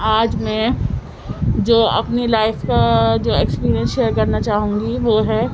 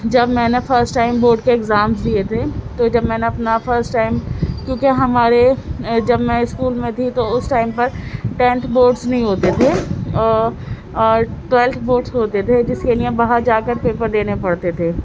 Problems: constant background noise